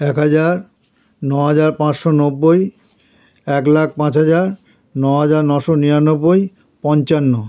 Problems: none marked